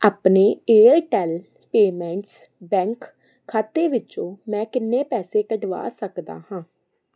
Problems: constant background noise